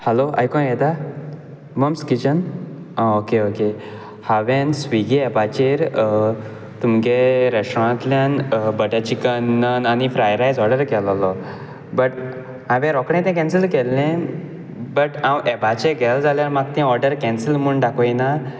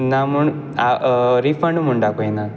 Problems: background sounds at intervals